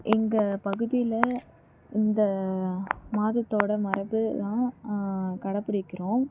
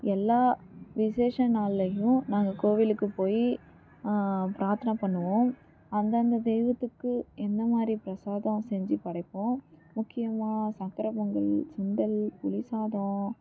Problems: background sounds at intervals